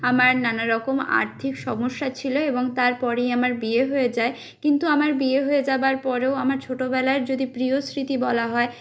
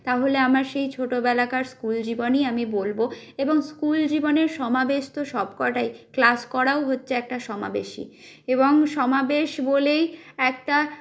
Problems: constant background noise